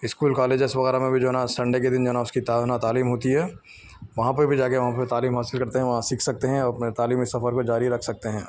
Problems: none marked